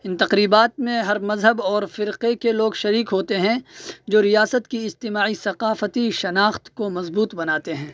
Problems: none marked